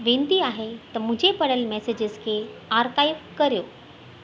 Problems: constant background noise, echo